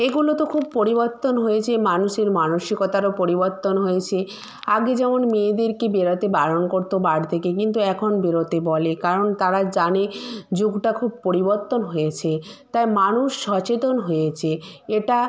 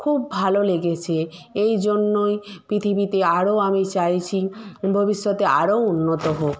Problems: none marked